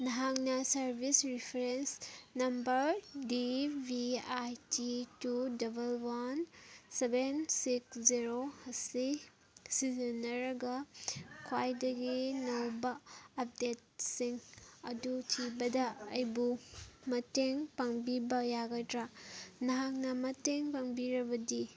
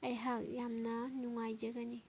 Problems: background sounds at intervals